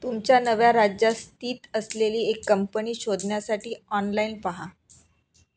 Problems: constant background noise